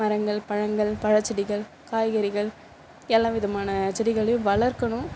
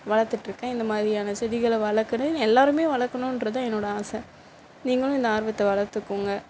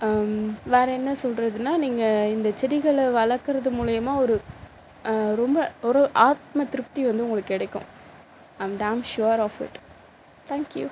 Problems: constant background noise